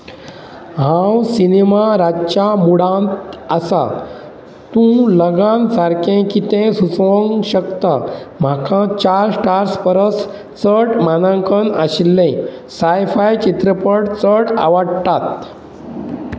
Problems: none marked